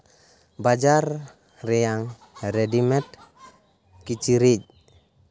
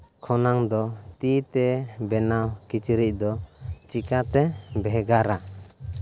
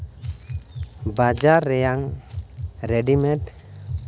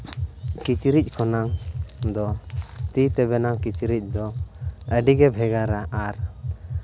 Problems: constant background noise